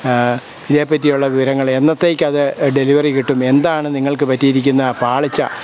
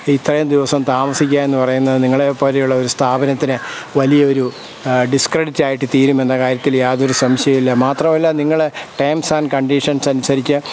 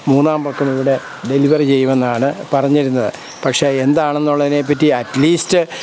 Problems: none marked